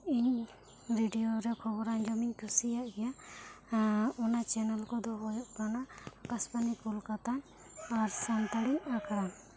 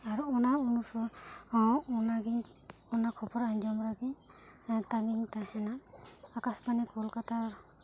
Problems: low volume